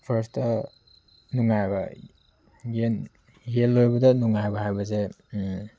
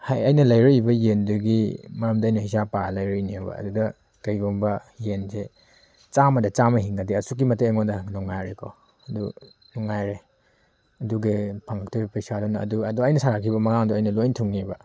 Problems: background sounds at intervals